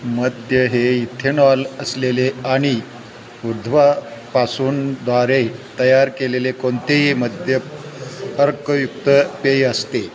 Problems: constant background noise, background conversations at intervals